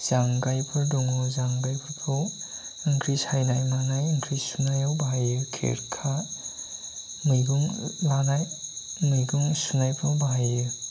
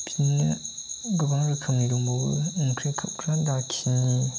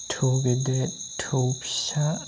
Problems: constant background noise